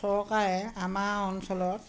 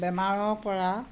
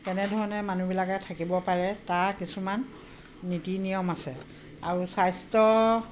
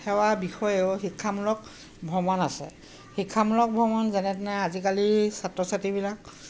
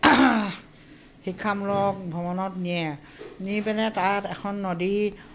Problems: constant background noise